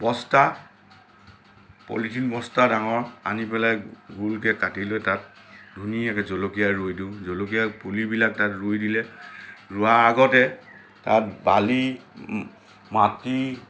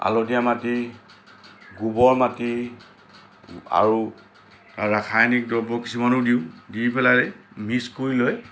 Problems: none marked